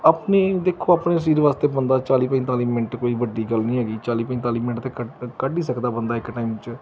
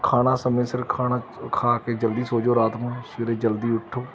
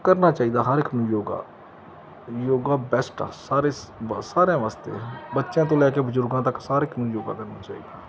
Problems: none marked